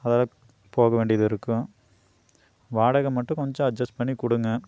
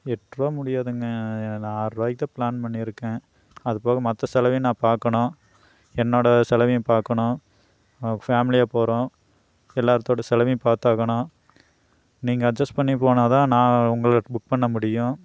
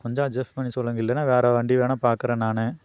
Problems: none marked